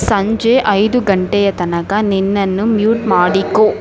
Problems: constant background noise